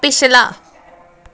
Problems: background conversations at intervals